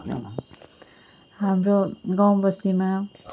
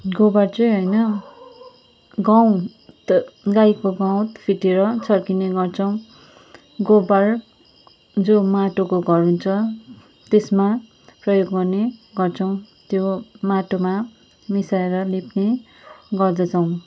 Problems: background sounds at intervals